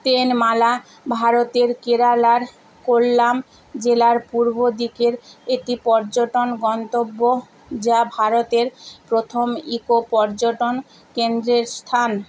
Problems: constant background noise